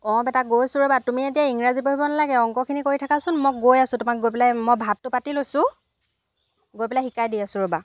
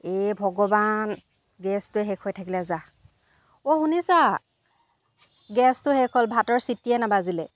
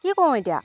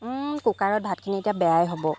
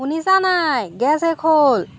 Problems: constant background noise